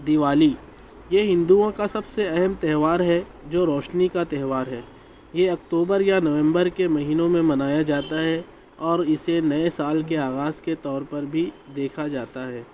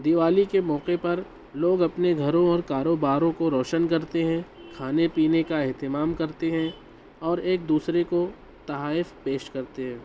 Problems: constant background noise